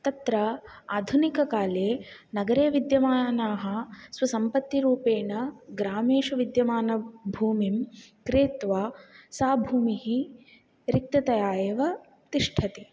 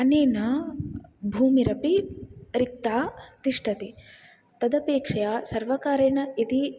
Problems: none marked